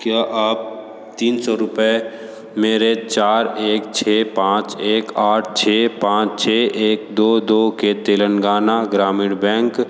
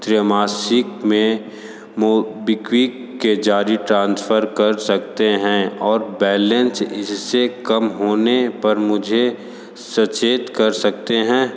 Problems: echo